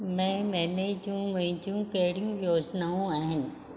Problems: none marked